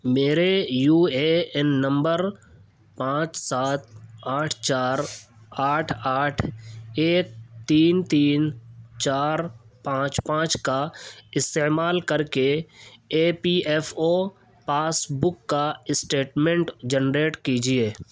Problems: none marked